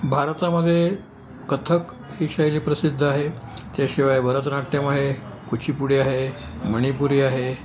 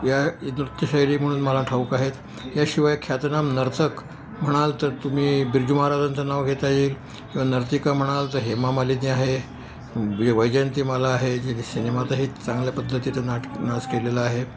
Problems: none marked